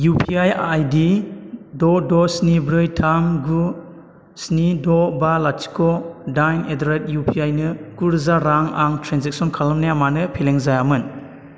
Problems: constant background noise